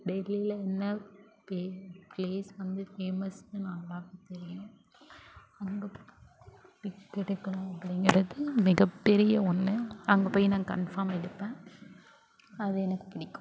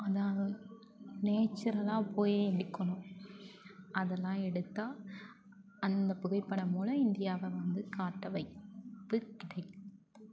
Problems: constant background noise, low volume